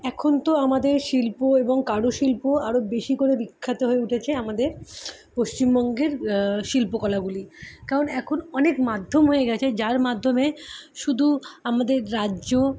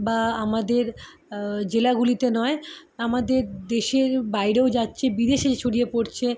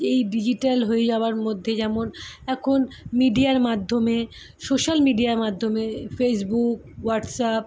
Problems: none marked